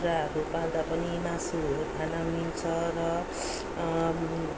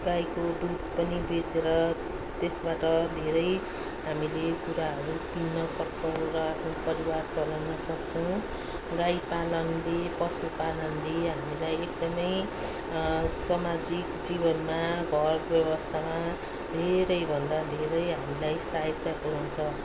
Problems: none marked